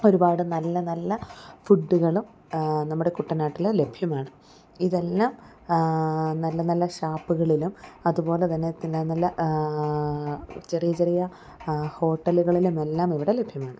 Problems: none marked